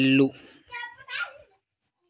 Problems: background conversations at intervals